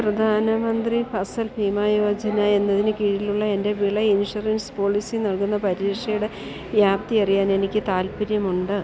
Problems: continuous background conversations, low volume